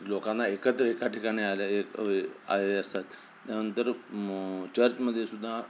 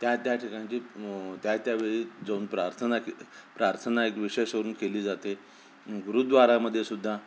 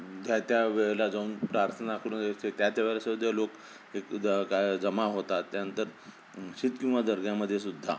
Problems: constant background noise